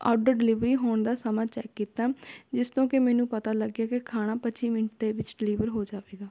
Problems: none marked